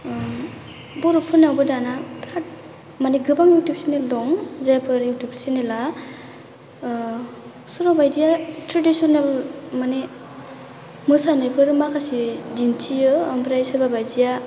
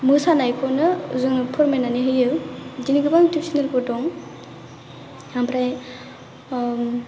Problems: low volume